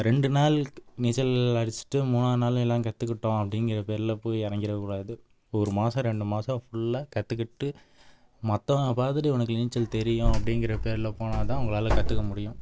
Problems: background sounds at intervals